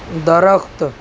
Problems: constant background noise